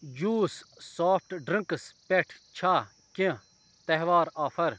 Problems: background sounds at intervals